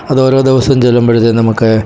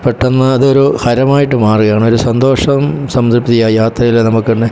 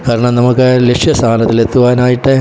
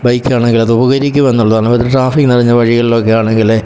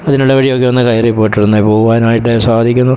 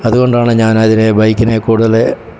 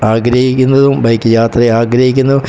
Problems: background sounds at intervals